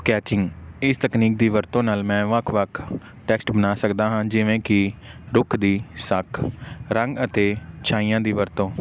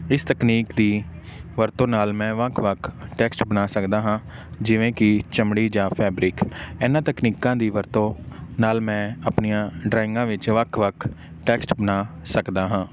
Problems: background sounds at intervals